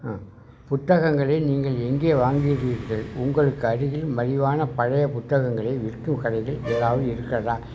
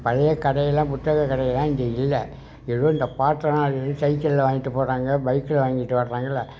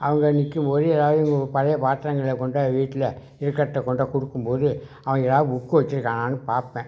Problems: background conversations at intervals